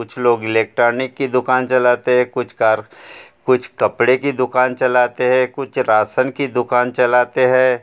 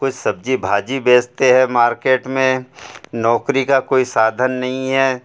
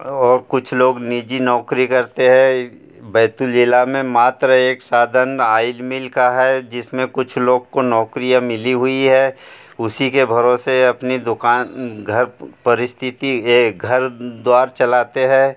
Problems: none marked